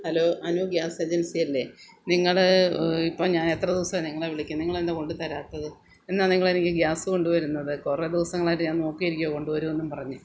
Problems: low volume